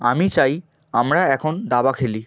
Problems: background conversations at intervals